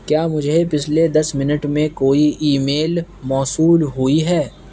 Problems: constant background noise